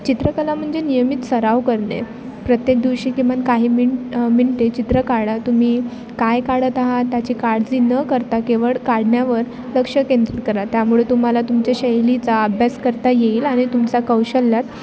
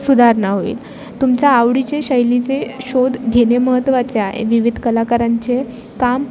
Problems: constant background noise, background conversations at intervals